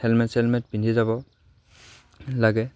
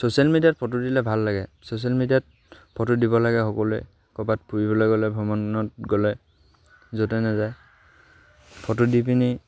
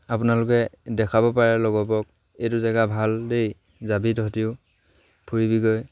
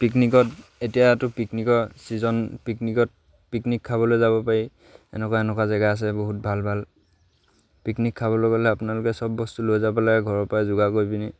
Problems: none marked